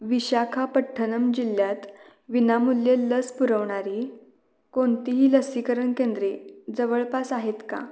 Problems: background sounds at intervals